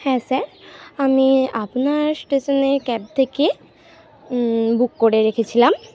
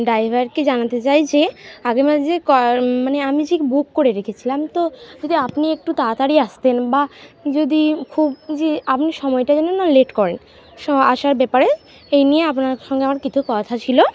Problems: none marked